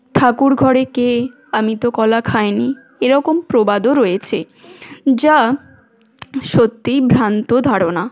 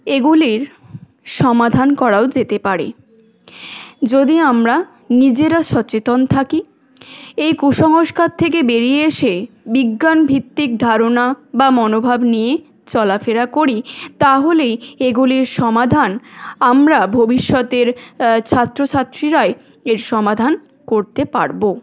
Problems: none marked